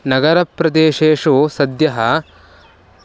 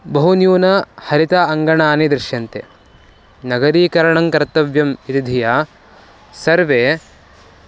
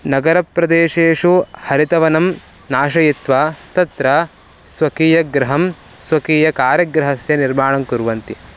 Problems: constant background noise